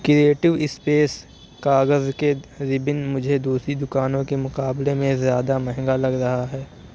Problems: none marked